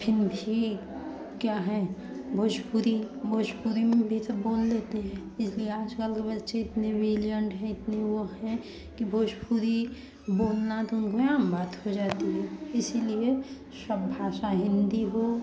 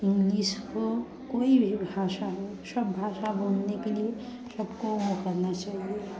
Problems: continuous background conversations